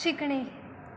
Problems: continuous background conversations